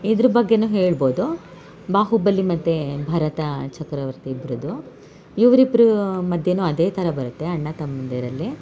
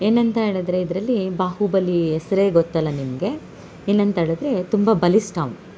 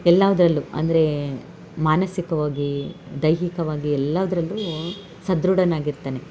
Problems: none marked